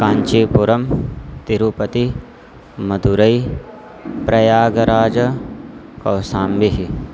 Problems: none marked